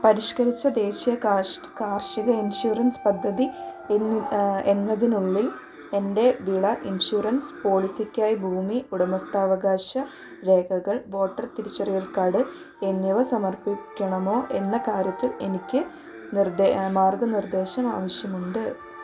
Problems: constant background noise